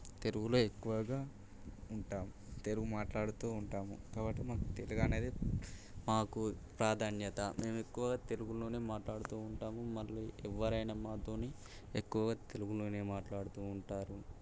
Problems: none marked